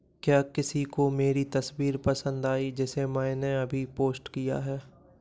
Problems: background sounds at intervals